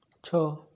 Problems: none marked